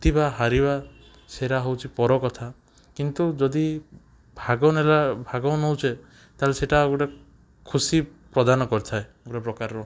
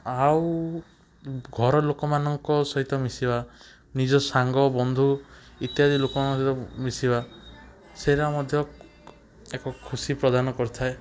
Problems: background sounds at intervals, background conversations at intervals